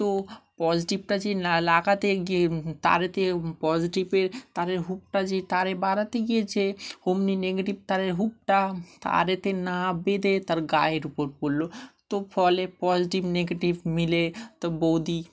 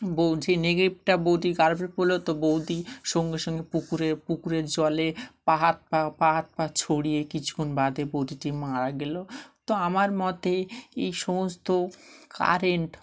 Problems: none marked